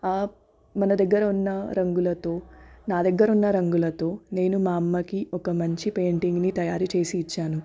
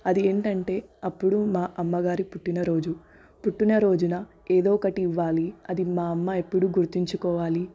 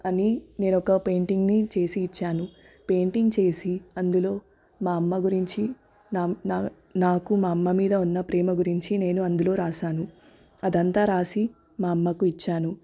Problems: none marked